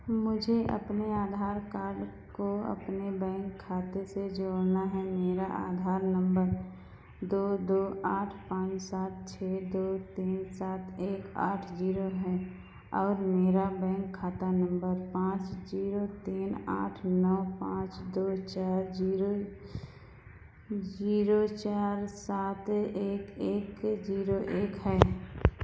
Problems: background sounds at intervals, echo